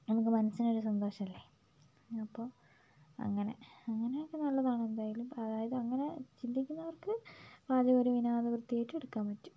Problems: low volume